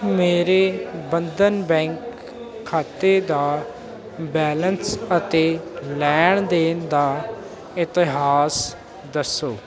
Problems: constant background noise